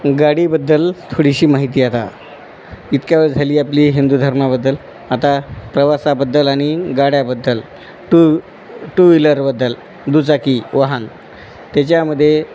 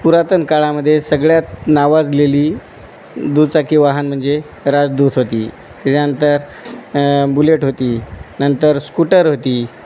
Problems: none marked